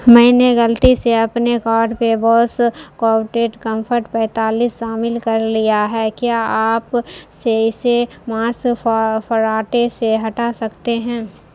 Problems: constant background noise